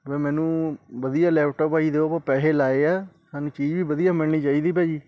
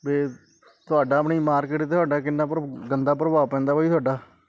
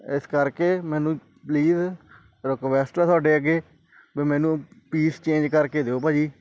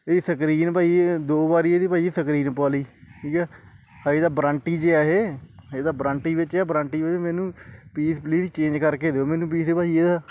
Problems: background conversations at intervals